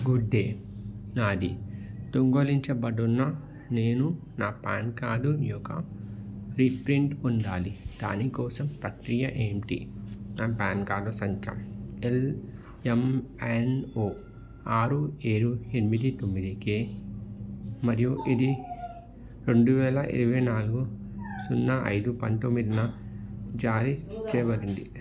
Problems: none marked